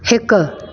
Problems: echo